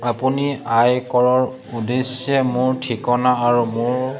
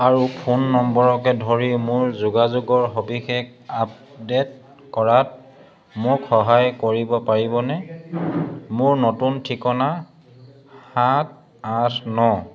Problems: none marked